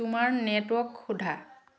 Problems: constant background noise